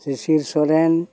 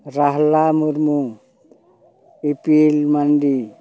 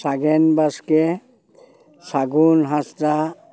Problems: constant background noise, background conversations at intervals